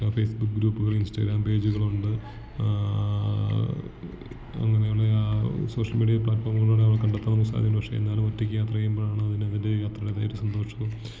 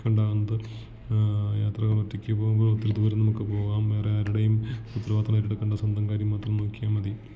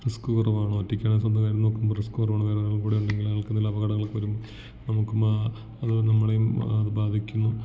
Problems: background sounds at intervals, low volume